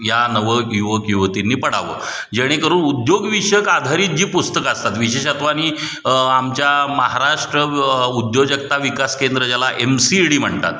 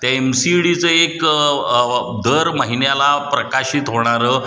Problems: background sounds at intervals